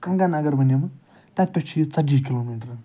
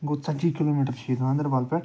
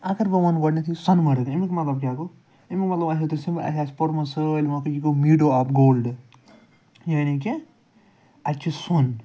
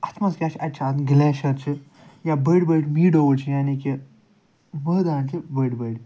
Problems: none marked